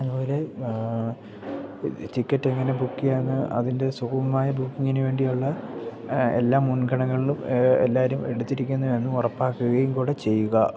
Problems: background sounds at intervals, low volume